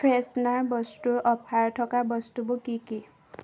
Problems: none marked